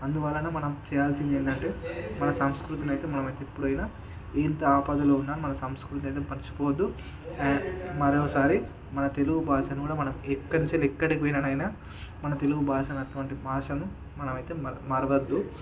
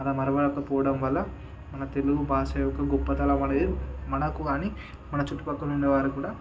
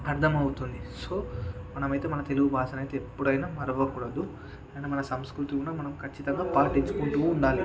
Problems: background conversations at intervals